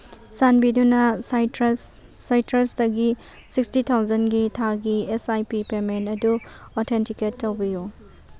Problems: background sounds at intervals